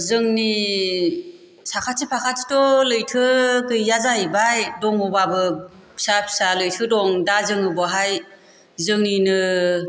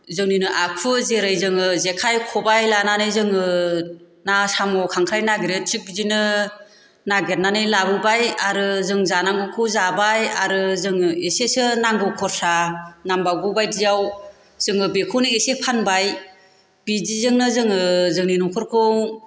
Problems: constant background noise